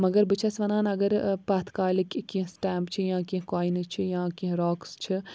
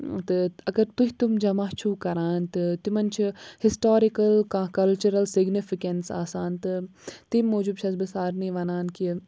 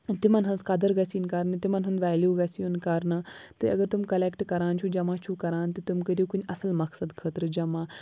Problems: background sounds at intervals